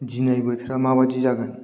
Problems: none marked